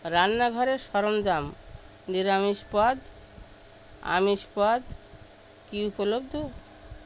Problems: constant background noise